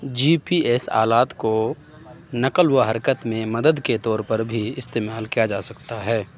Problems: none marked